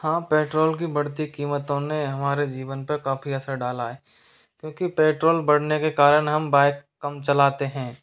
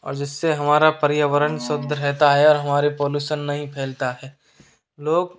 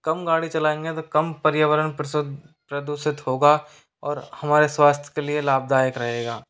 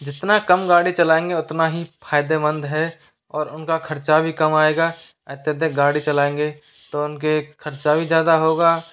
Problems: constant background noise